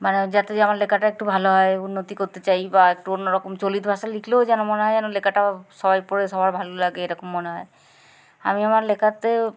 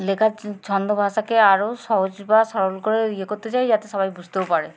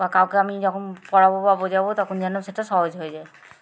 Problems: constant background noise, background conversations at intervals